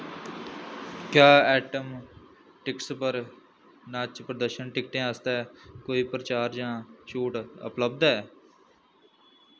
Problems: constant background noise